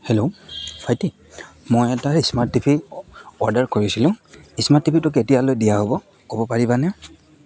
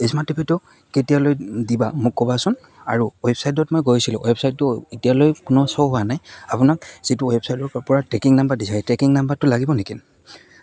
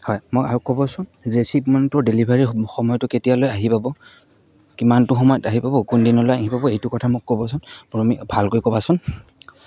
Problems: constant background noise, background conversations at intervals